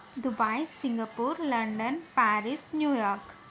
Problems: constant background noise